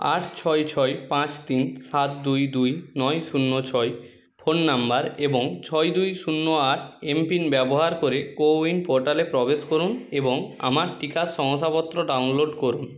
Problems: background sounds at intervals